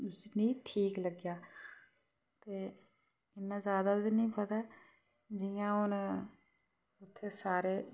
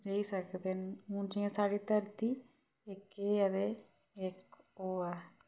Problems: background sounds at intervals